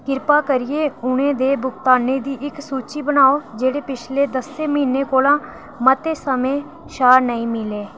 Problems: none marked